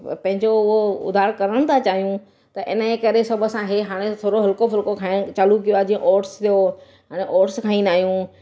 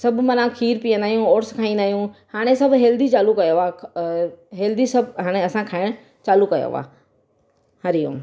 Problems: none marked